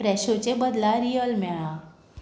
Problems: background sounds at intervals